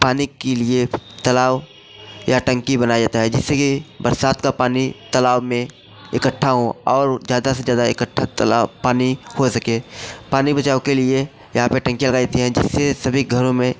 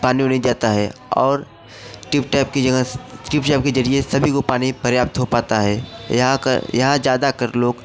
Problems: constant background noise, background conversations at intervals